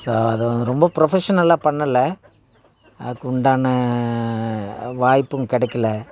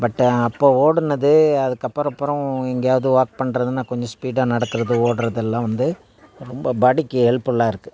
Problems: none marked